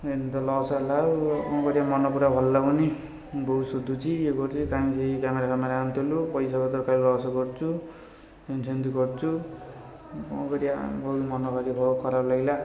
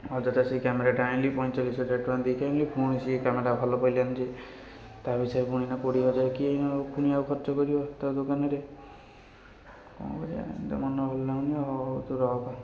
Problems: constant background noise, continuous background conversations